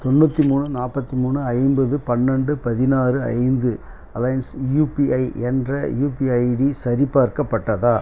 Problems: none marked